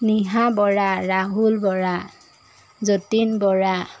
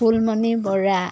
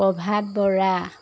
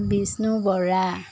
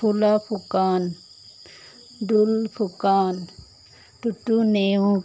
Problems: background sounds at intervals